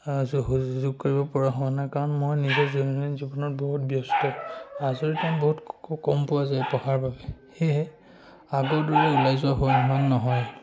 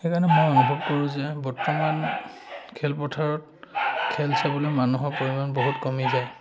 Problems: none marked